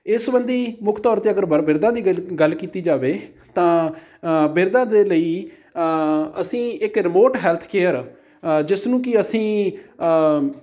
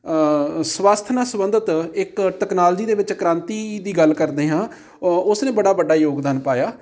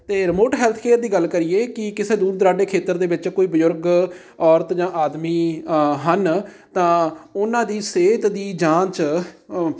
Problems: background sounds at intervals